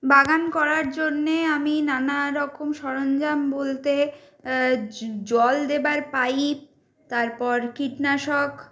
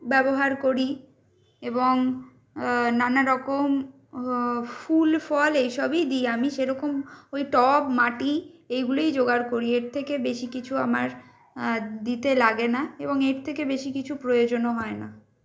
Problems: none marked